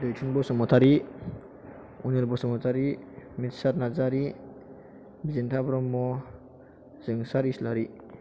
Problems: constant background noise